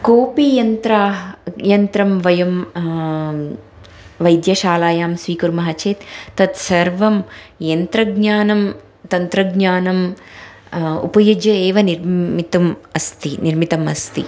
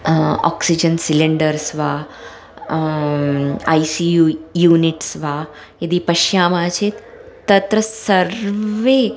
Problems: background sounds at intervals